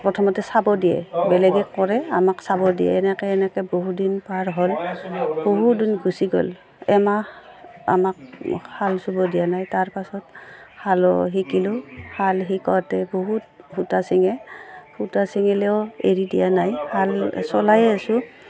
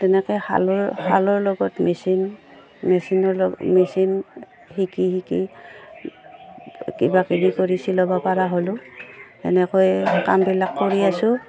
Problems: none marked